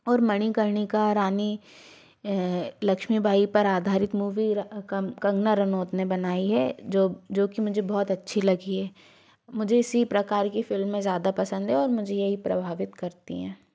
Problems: none marked